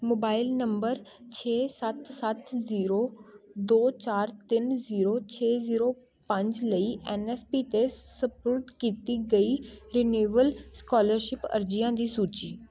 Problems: continuous background conversations